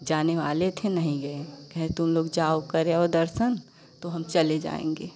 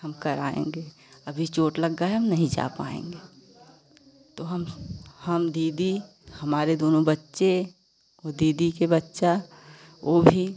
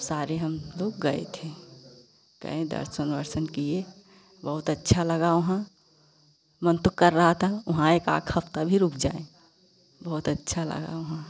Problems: constant background noise